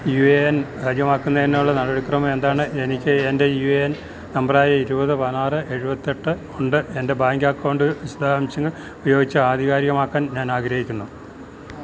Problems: none marked